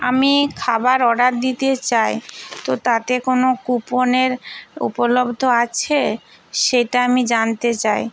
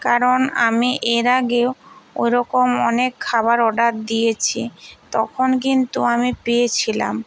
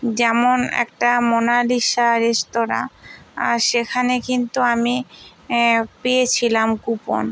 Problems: constant background noise